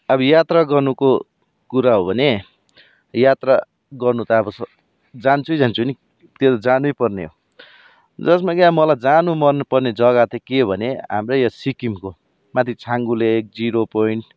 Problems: background sounds at intervals